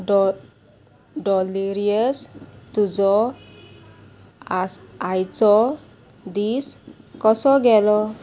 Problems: constant background noise